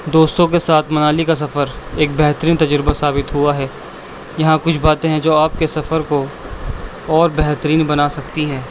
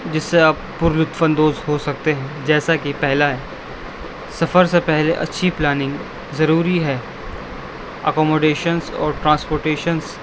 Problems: constant background noise